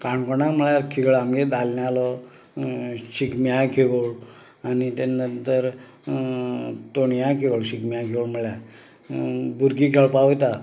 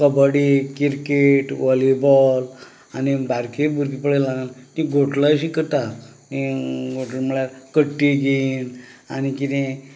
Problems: none marked